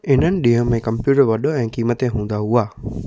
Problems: background sounds at intervals